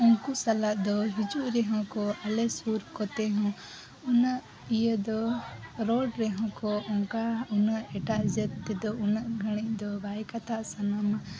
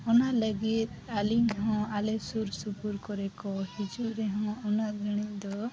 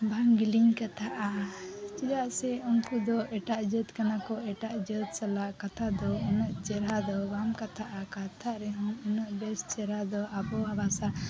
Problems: none marked